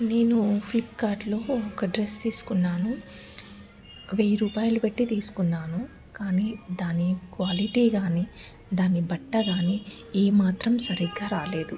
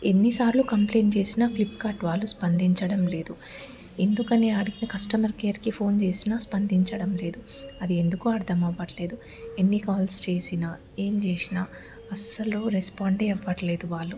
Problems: background sounds at intervals